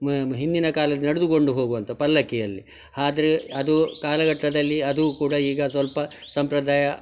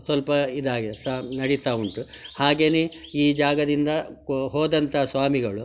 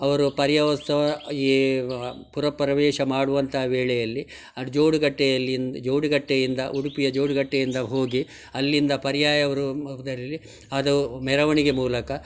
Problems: none marked